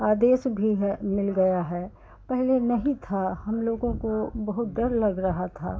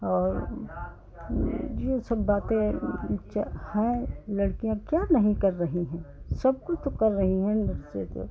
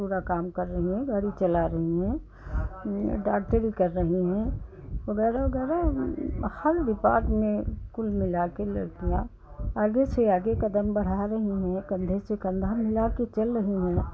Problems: background sounds at intervals, continuous background conversations